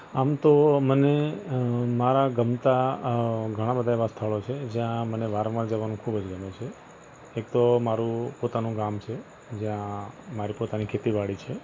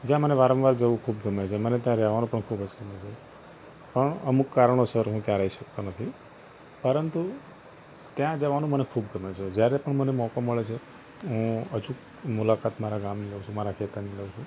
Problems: constant background noise